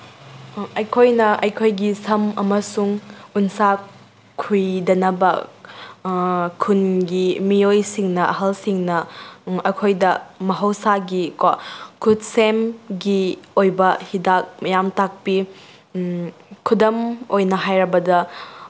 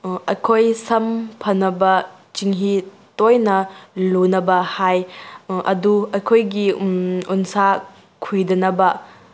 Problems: background sounds at intervals